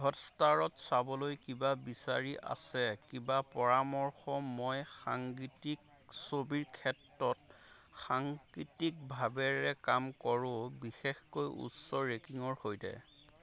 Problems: constant background noise